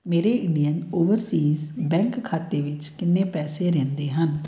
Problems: background sounds at intervals